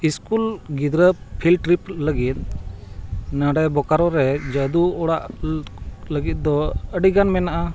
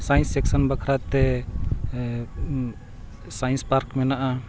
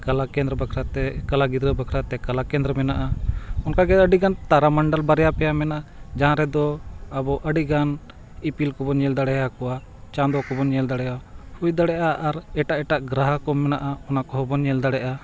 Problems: background sounds at intervals